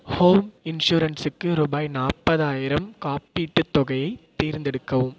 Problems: echo